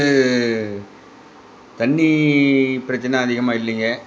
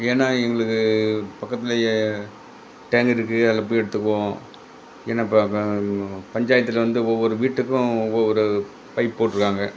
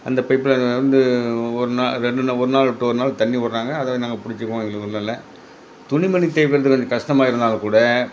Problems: background conversations at intervals